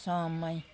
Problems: constant background noise